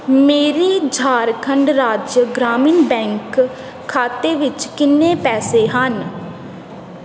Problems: constant background noise